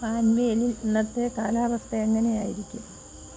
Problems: constant background noise, low volume